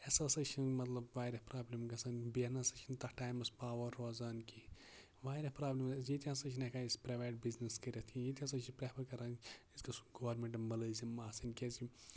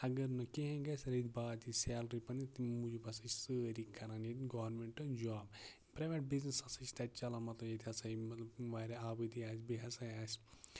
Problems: constant background noise, low volume